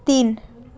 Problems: constant background noise, background conversations at intervals